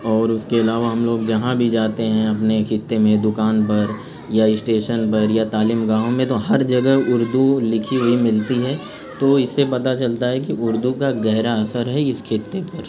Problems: constant background noise